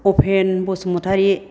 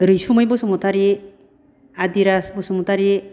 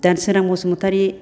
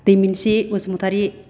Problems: none marked